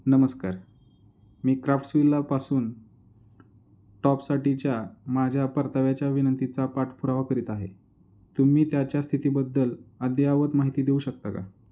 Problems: none marked